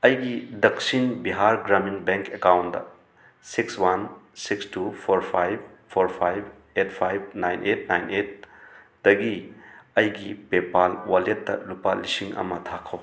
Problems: background sounds at intervals